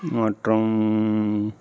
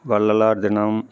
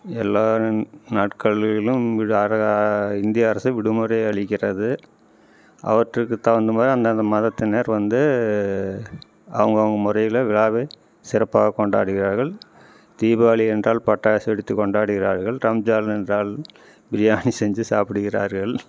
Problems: background conversations at intervals